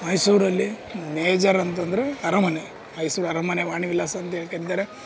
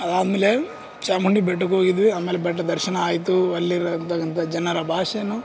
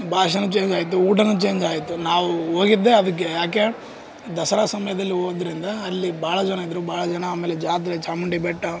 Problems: background sounds at intervals